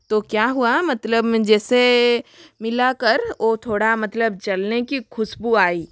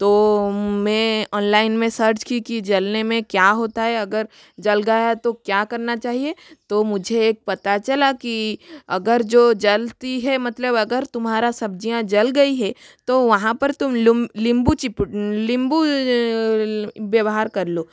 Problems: constant background noise